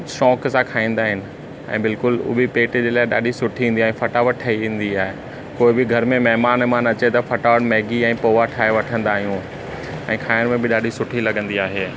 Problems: constant background noise